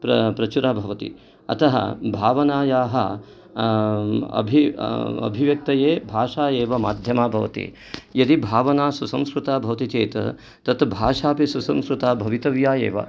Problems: background sounds at intervals